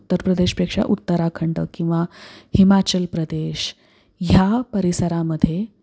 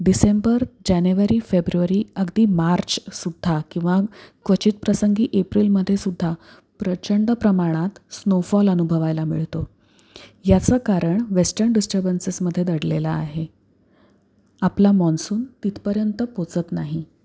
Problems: none marked